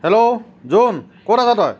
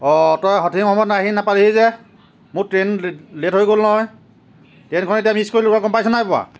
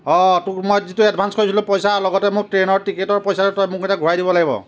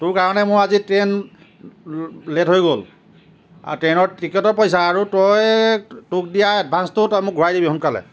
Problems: none marked